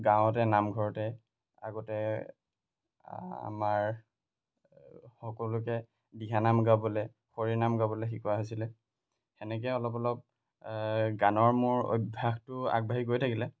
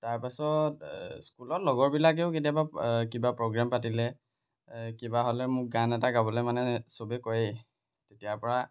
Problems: none marked